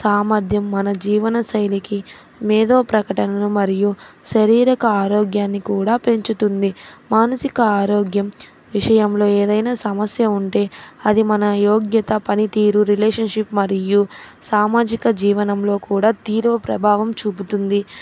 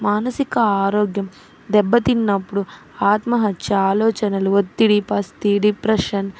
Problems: constant background noise